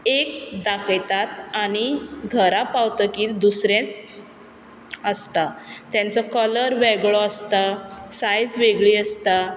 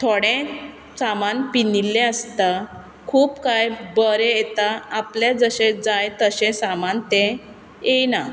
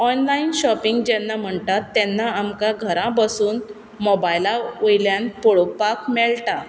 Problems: background sounds at intervals